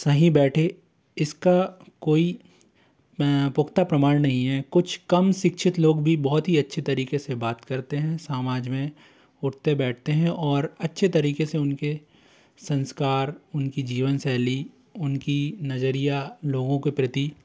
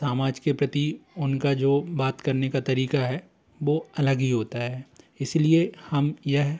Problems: constant background noise, continuous background conversations